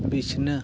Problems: constant background noise